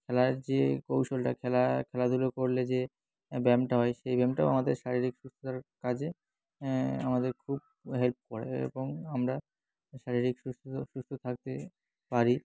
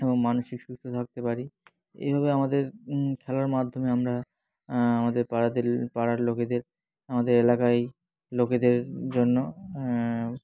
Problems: constant background noise, background conversations at intervals